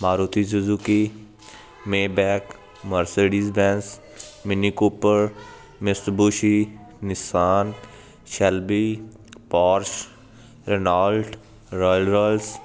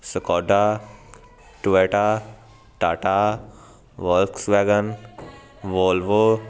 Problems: constant background noise